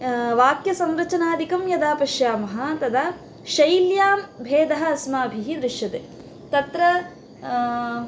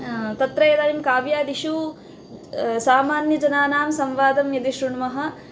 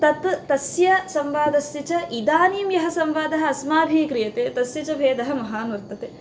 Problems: constant background noise